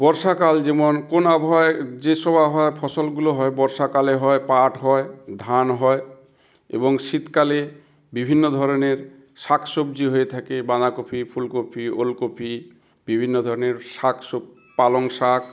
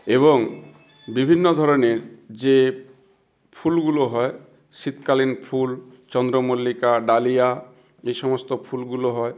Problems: background sounds at intervals